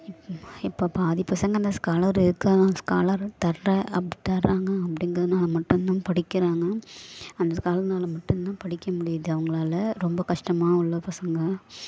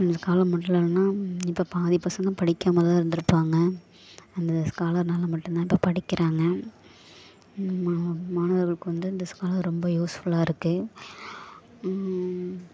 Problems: background sounds at intervals